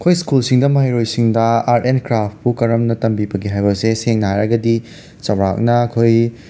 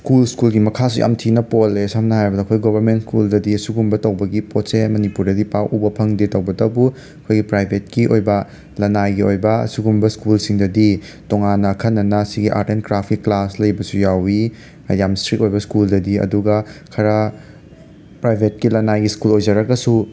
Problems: background sounds at intervals